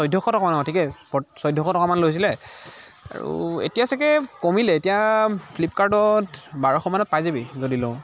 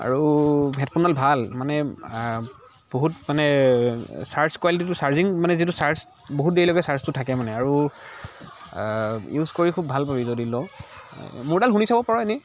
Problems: constant background noise, continuous background conversations